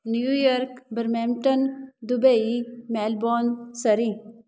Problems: none marked